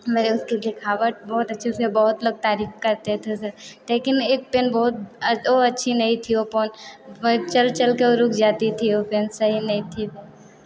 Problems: background sounds at intervals